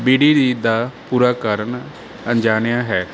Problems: background sounds at intervals